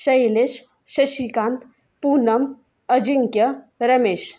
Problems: background sounds at intervals